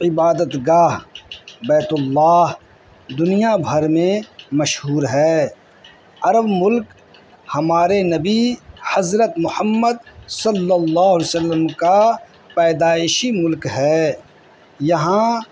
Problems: constant background noise